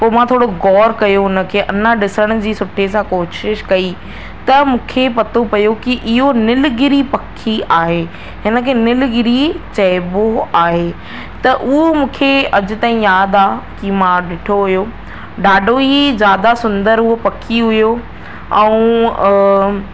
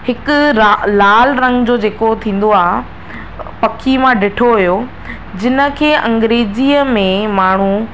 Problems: constant background noise